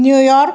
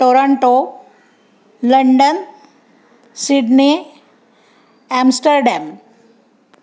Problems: constant background noise